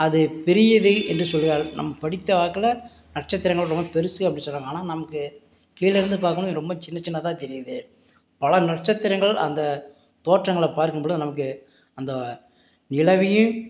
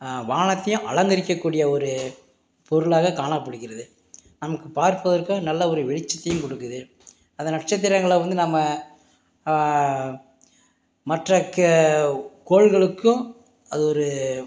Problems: background sounds at intervals